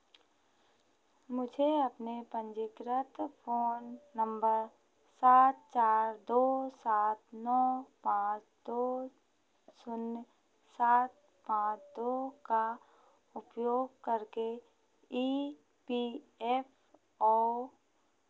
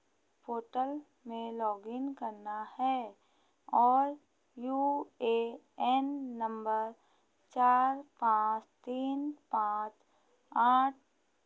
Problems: constant background noise